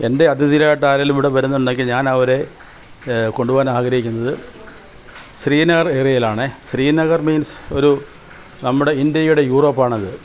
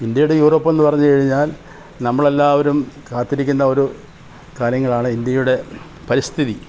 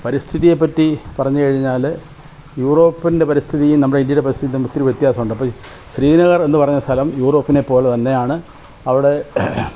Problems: constant background noise, background conversations at intervals